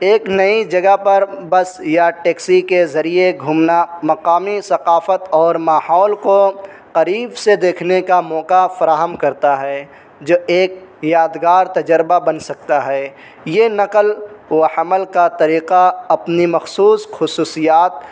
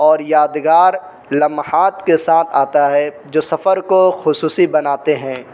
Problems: constant background noise